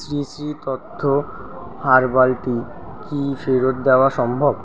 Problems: constant background noise